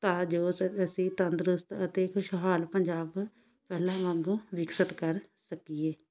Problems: constant background noise